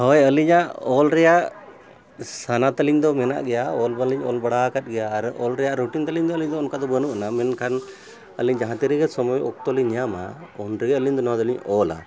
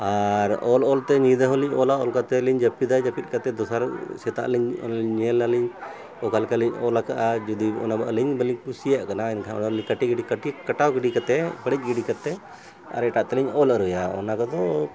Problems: constant background noise